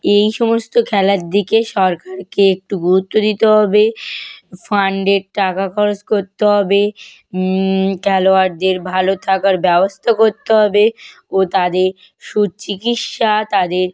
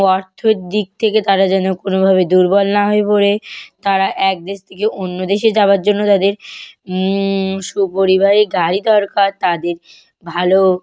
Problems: none marked